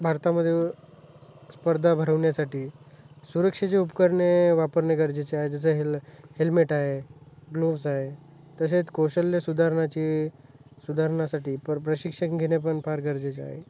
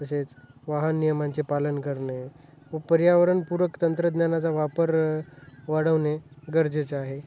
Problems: none marked